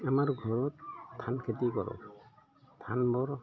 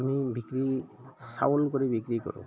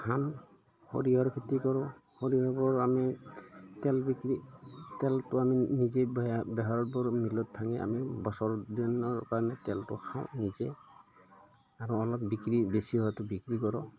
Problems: background sounds at intervals, background conversations at intervals